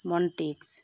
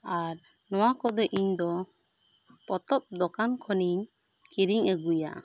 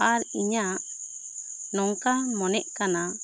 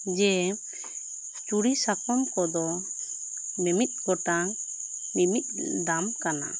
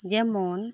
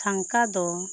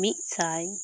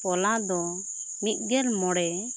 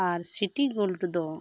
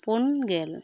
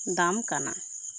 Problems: constant background noise